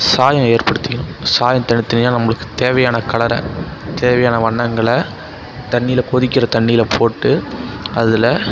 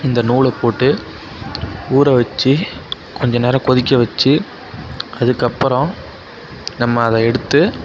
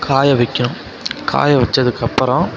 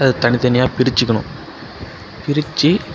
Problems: background sounds at intervals, background conversations at intervals